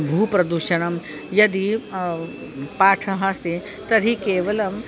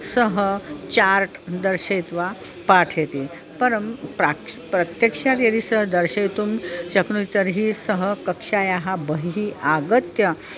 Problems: constant background noise, continuous background conversations